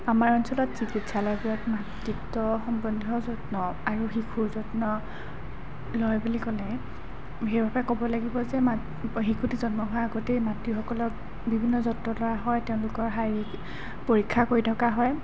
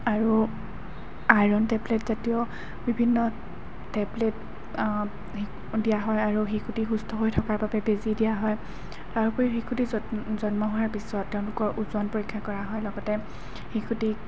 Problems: constant background noise